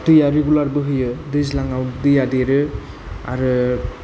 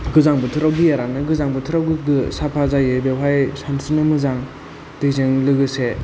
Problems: low volume